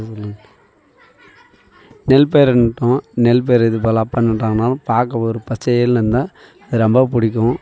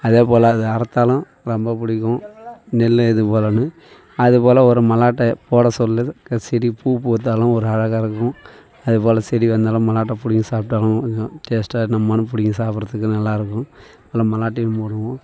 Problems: background sounds at intervals, continuous background conversations